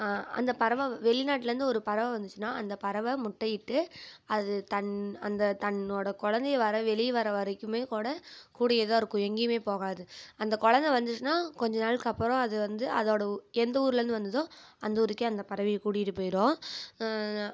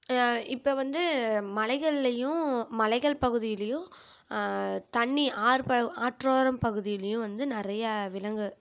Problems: none marked